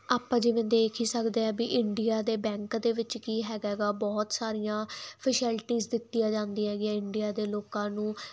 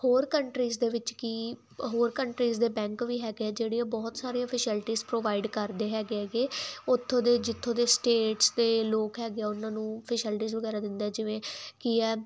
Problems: background sounds at intervals